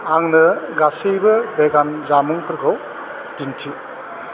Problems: none marked